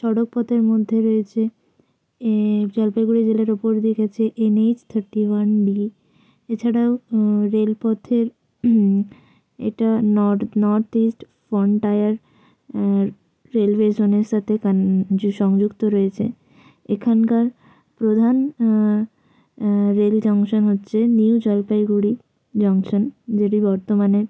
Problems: constant background noise